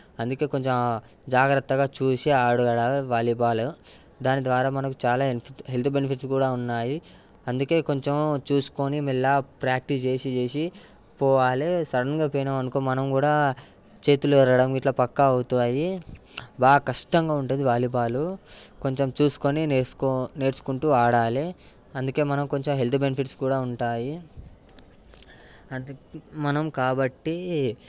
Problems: background sounds at intervals